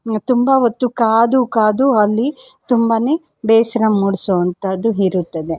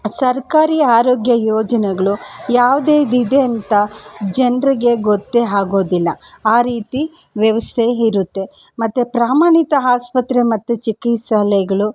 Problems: none marked